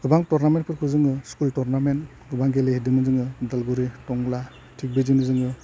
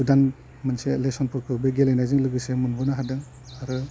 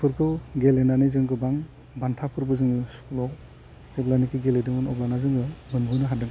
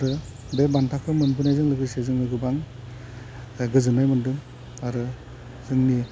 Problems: low volume